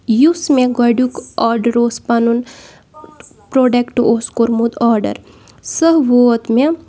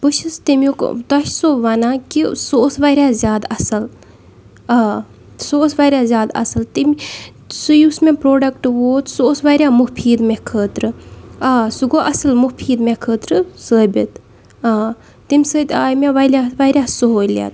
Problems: background sounds at intervals